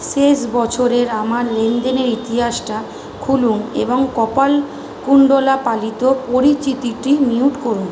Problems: none marked